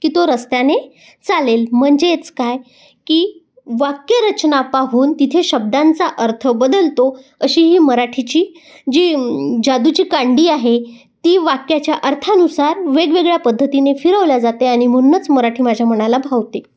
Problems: background sounds at intervals